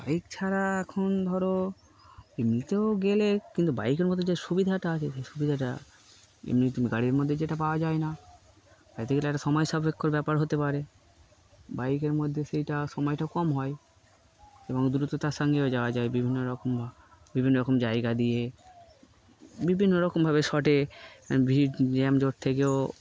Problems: none marked